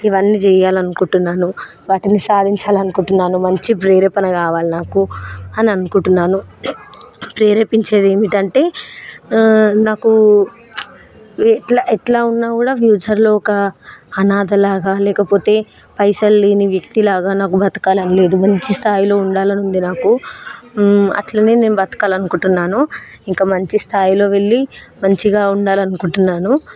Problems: none marked